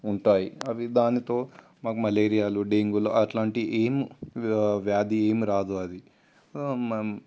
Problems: constant background noise